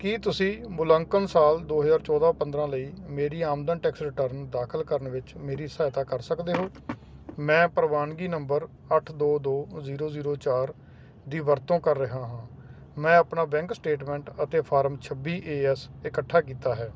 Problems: none marked